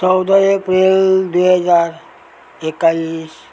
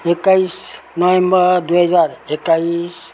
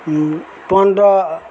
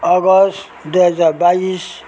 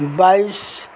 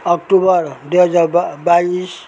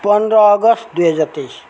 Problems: none marked